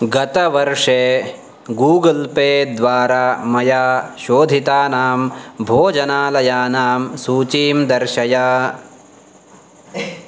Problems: background sounds at intervals